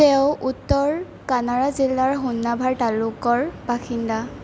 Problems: constant background noise